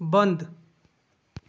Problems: none marked